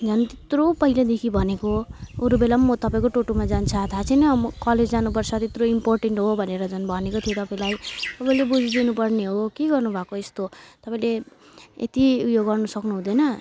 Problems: constant background noise